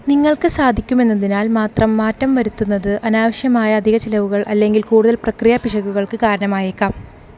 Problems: constant background noise